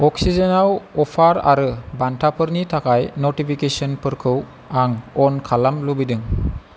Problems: constant background noise